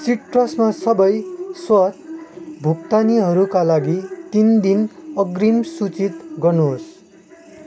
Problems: constant background noise